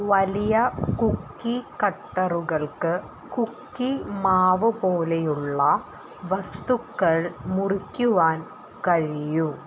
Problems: constant background noise